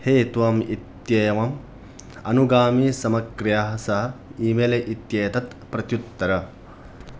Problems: none marked